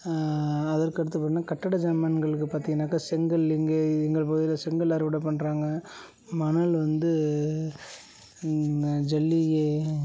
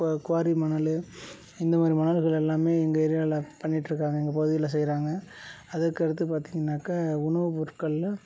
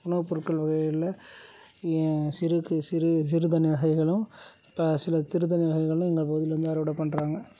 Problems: low volume